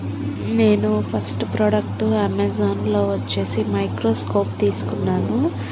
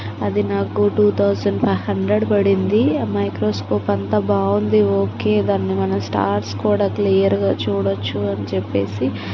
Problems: constant background noise